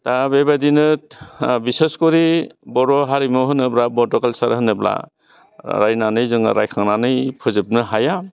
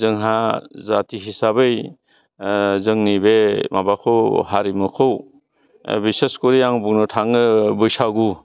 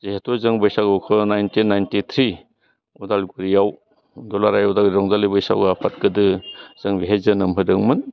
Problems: constant background noise